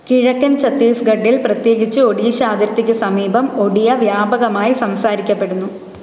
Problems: constant background noise